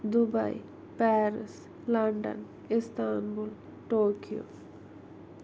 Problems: constant background noise, low volume